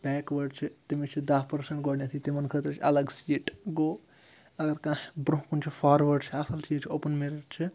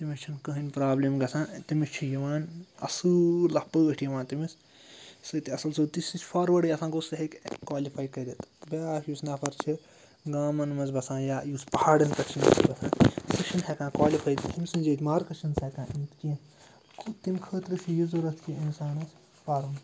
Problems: low volume